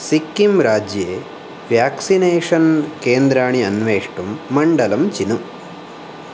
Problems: constant background noise